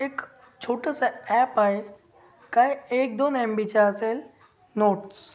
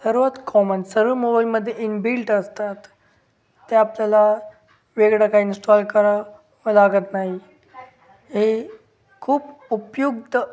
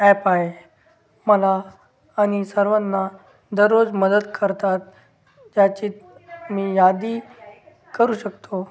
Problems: none marked